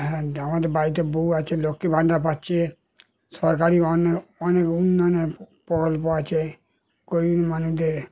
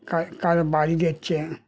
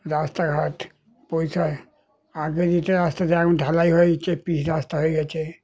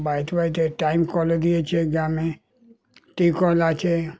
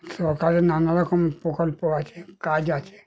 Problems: continuous background conversations